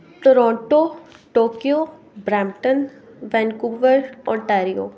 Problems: none marked